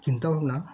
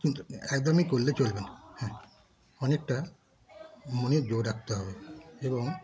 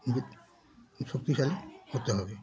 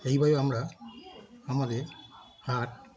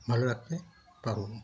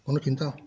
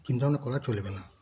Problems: constant background noise, continuous background conversations